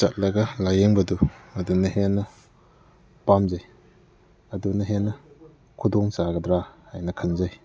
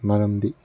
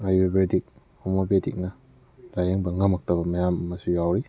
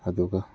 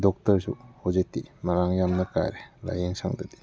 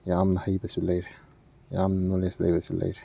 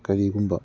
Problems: background sounds at intervals, background conversations at intervals